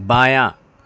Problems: none marked